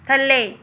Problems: none marked